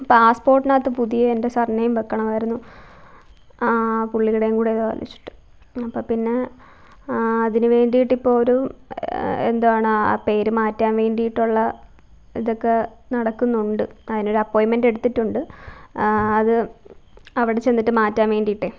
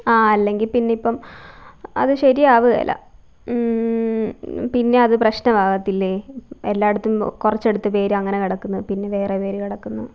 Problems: low volume